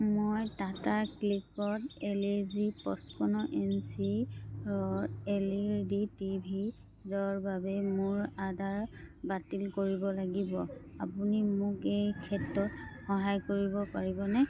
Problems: none marked